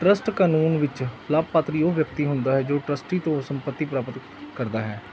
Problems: background sounds at intervals